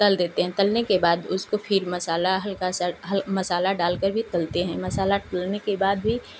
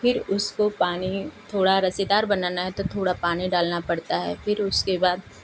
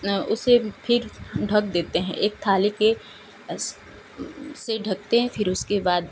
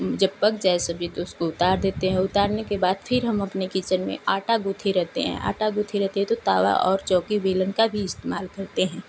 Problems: none marked